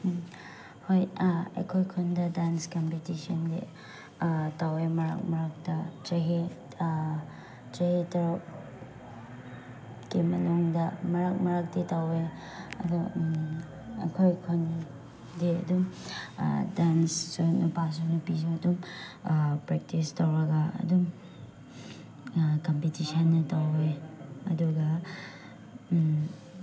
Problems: background sounds at intervals